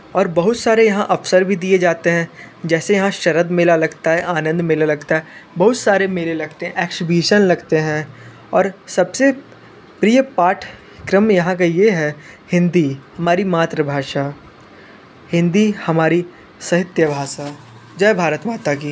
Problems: constant background noise